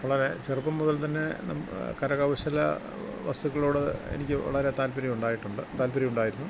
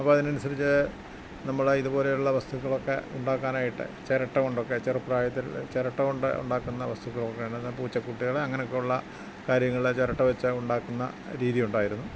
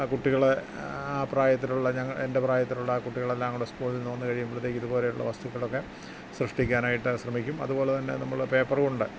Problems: constant background noise